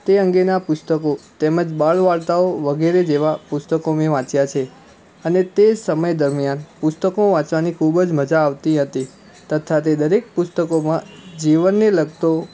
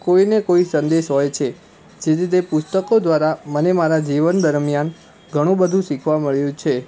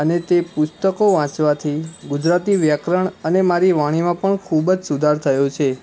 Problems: constant background noise